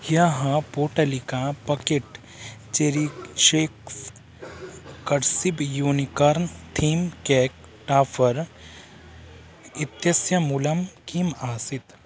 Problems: constant background noise